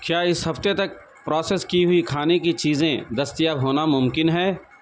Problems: none marked